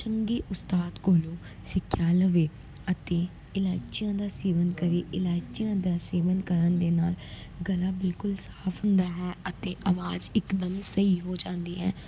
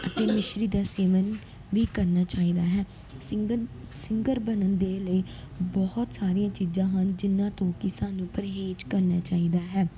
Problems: background sounds at intervals